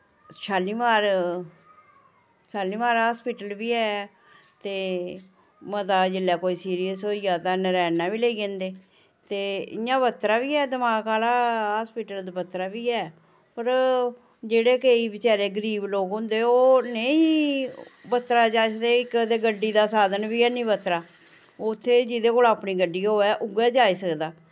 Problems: none marked